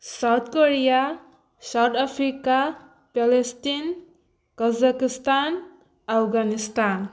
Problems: background sounds at intervals